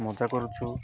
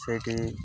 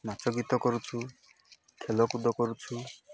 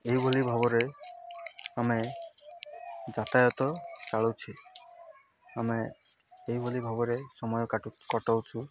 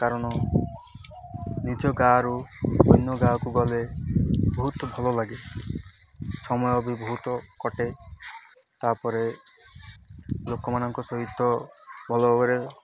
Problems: constant background noise